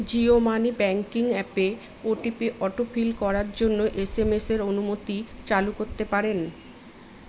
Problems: none marked